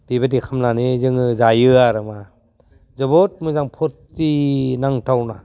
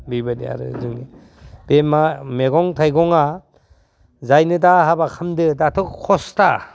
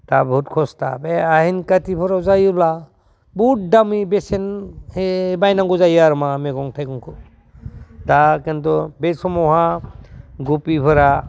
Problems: constant background noise